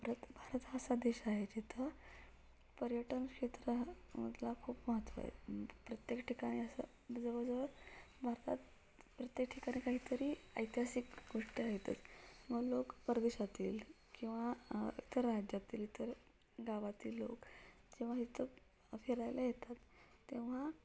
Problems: low volume